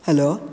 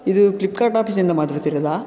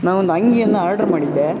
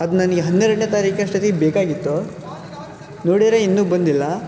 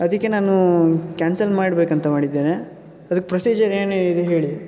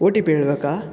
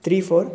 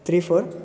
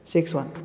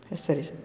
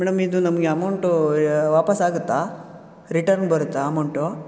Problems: background conversations at intervals